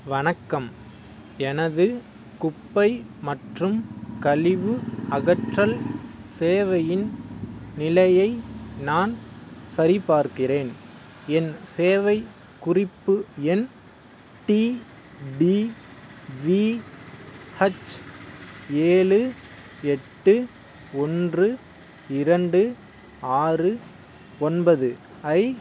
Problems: none marked